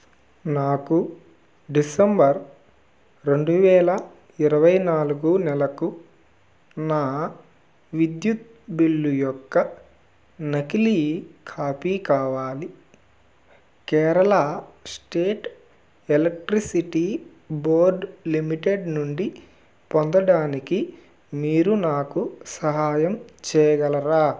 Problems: background sounds at intervals